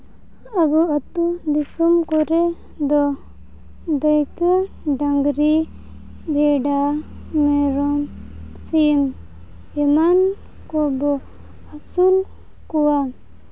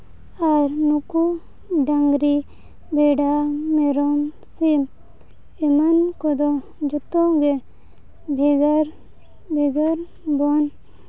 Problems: background sounds at intervals, low volume